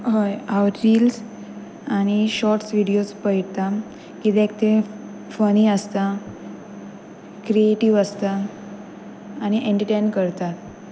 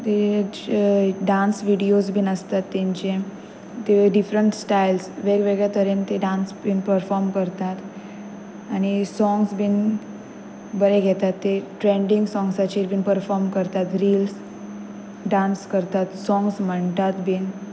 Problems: constant background noise